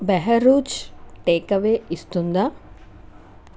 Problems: none marked